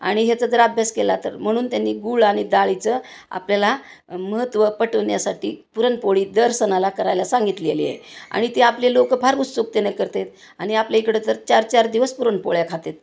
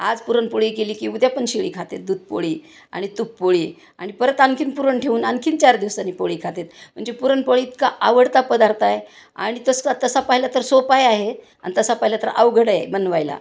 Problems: constant background noise